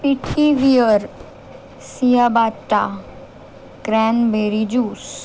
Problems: none marked